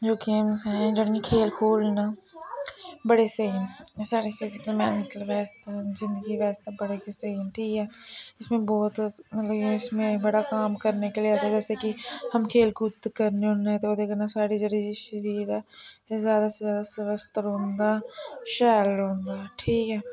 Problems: constant background noise